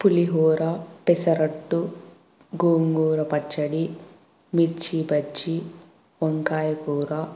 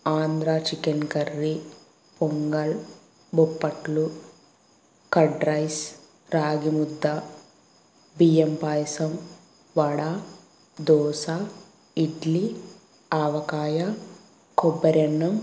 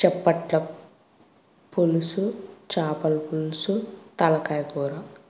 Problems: constant background noise